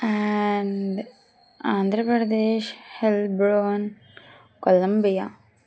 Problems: none marked